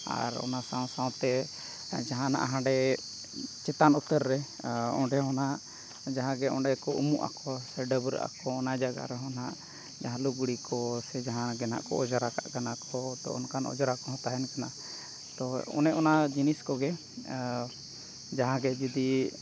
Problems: none marked